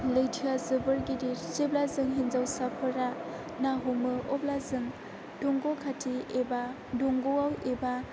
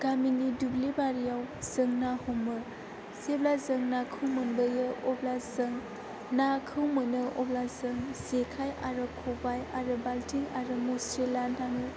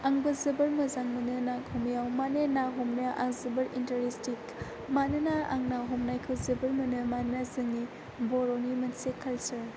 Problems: background conversations at intervals